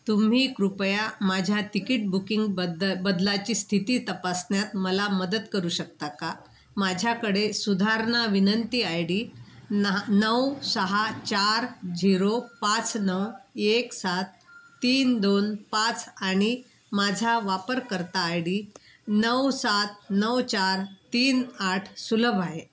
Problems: constant background noise